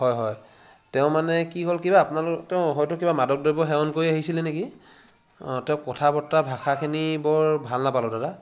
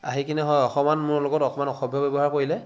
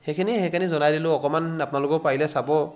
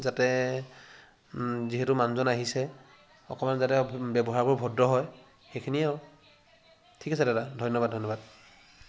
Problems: constant background noise